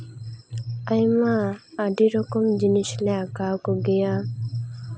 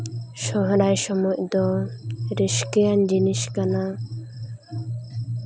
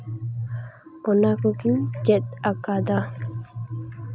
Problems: constant background noise, continuous background conversations